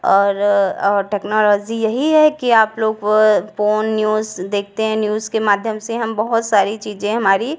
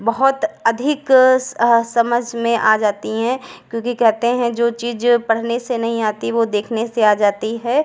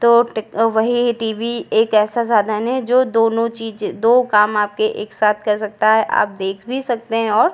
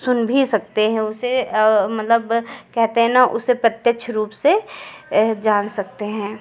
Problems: none marked